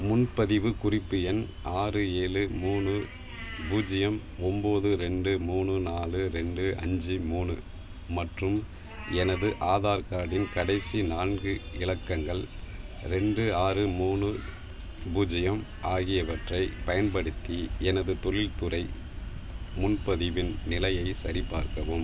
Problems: background sounds at intervals